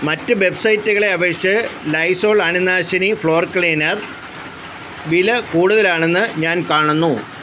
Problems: constant background noise